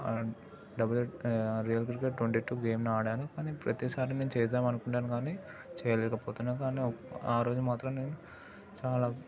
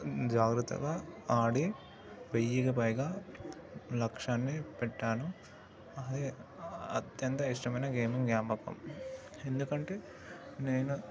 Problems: background sounds at intervals, continuous background conversations